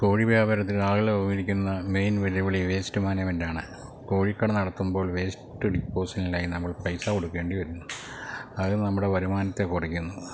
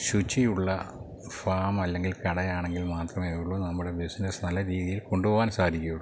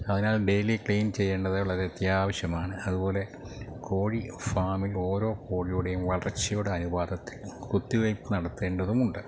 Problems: low volume